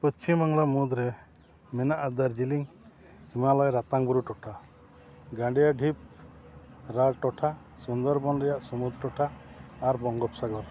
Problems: low volume